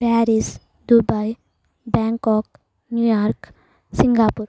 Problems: background sounds at intervals